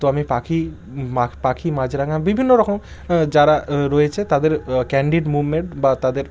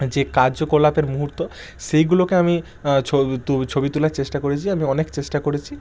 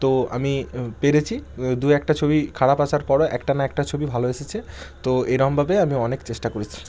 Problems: none marked